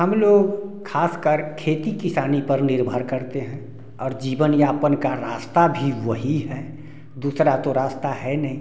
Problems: background sounds at intervals